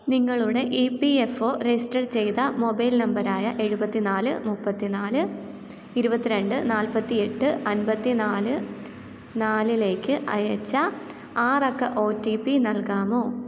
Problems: none marked